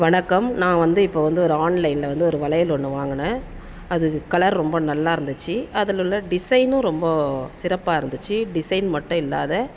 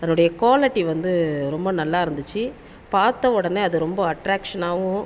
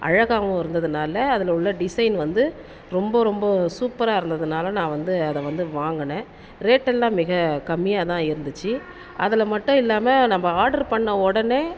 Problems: none marked